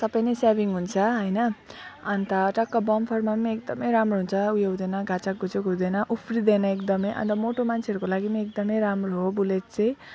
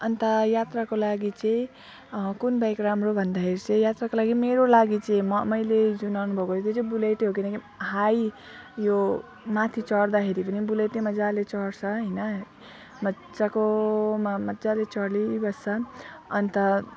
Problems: constant background noise, background conversations at intervals